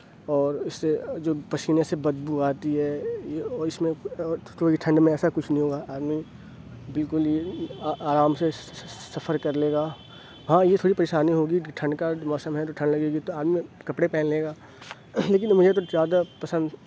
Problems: low volume